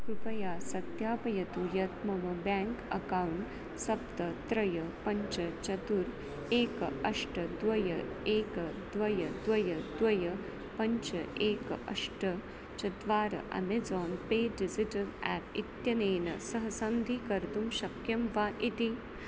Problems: constant background noise, low volume